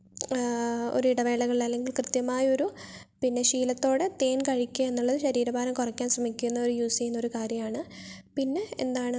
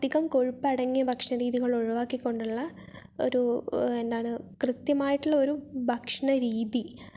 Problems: none marked